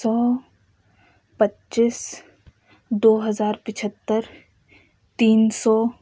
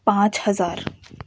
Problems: none marked